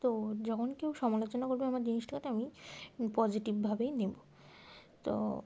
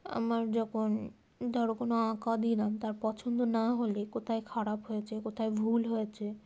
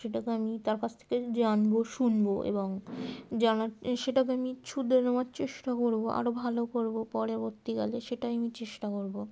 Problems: constant background noise